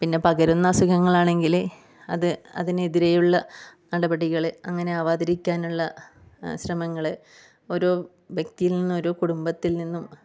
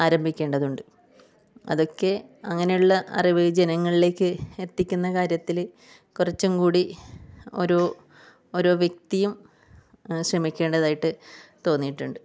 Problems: low volume